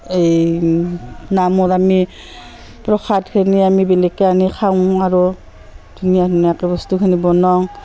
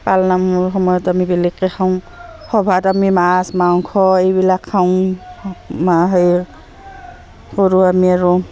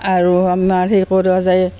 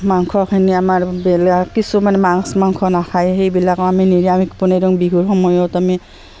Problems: constant background noise, continuous background conversations